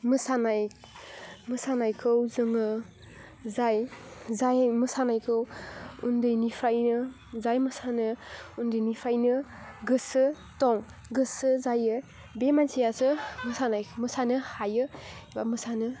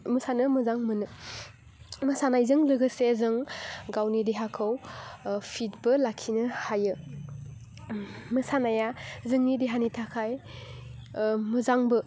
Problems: none marked